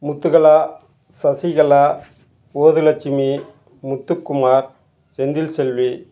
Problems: none marked